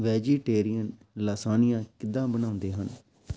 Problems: none marked